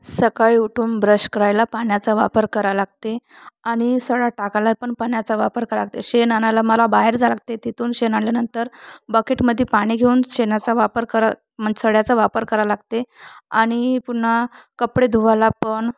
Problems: constant background noise